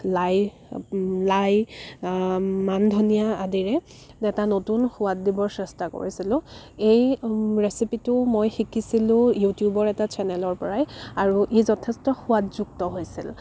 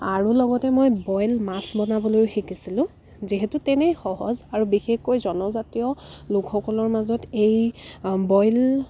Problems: constant background noise